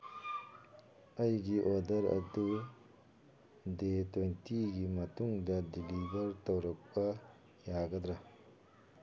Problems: background sounds at intervals